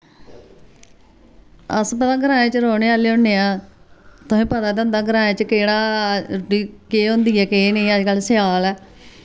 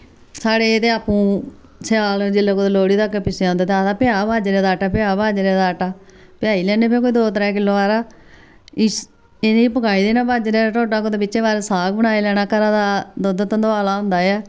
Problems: none marked